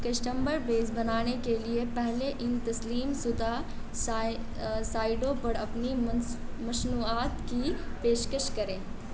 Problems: constant background noise